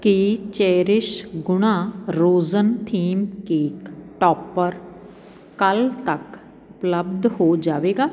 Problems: background sounds at intervals